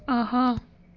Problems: background sounds at intervals